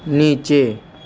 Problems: constant background noise